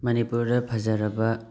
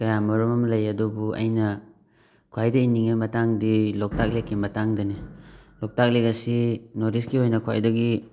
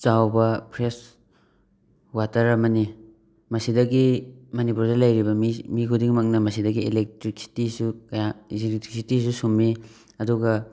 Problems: background sounds at intervals